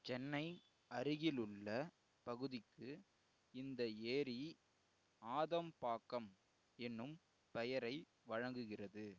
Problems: low volume